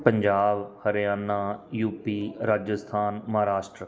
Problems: background sounds at intervals